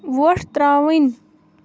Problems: background sounds at intervals